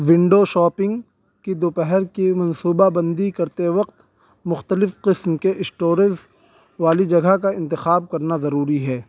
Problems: none marked